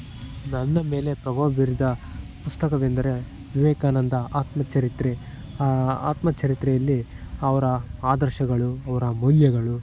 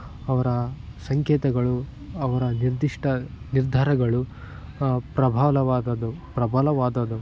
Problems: background sounds at intervals